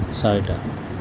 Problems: constant background noise